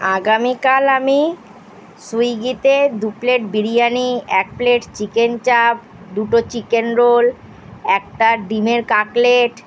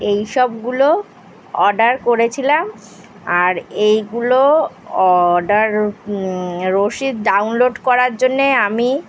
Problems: constant background noise